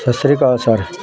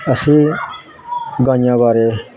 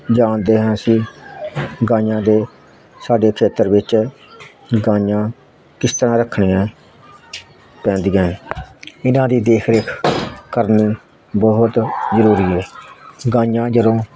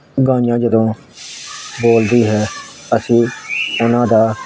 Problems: constant background noise